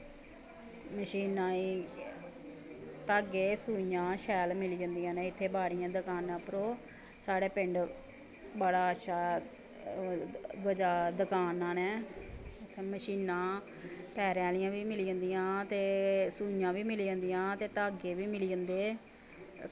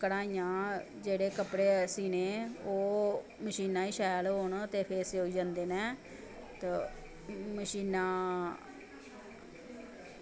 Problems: none marked